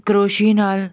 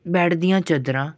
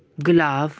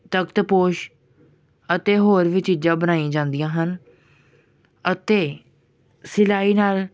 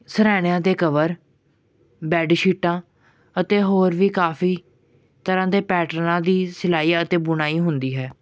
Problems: background sounds at intervals